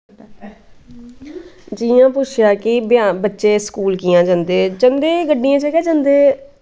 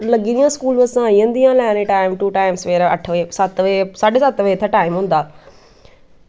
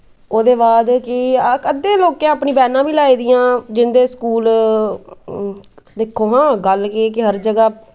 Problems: none marked